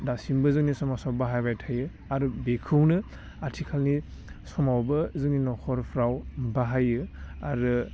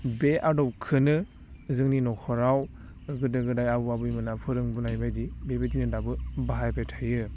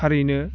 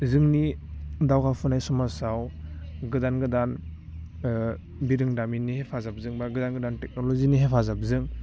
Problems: constant background noise